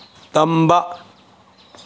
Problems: none marked